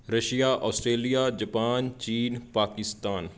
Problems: background sounds at intervals